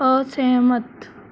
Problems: background sounds at intervals